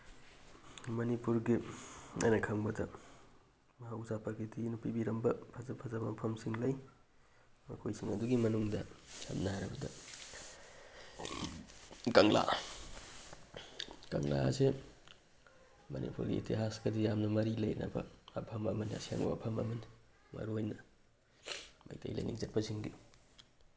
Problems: none marked